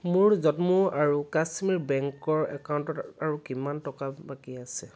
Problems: background sounds at intervals